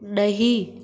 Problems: constant background noise, echo